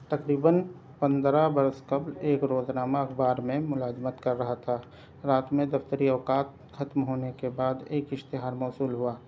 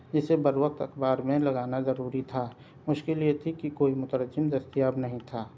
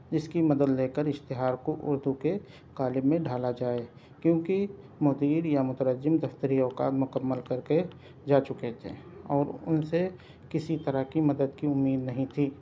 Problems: background sounds at intervals